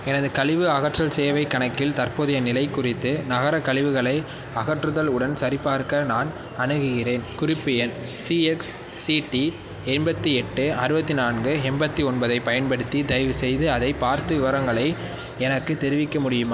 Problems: background sounds at intervals